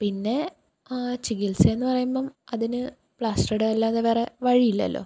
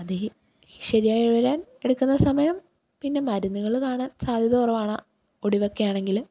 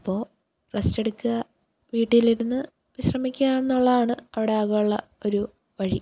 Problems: none marked